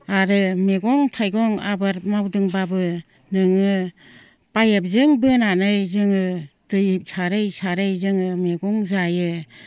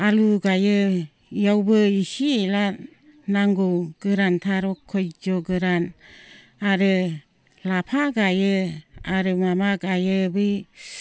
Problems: low volume